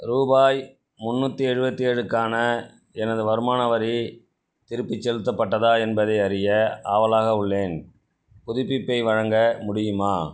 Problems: none marked